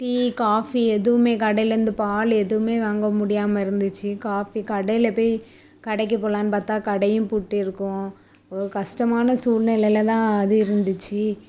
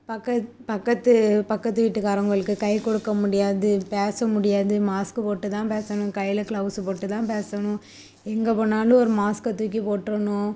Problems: none marked